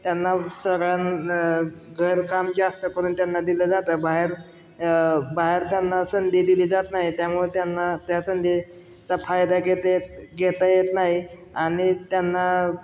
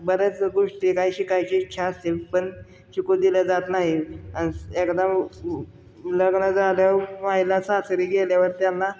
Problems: background sounds at intervals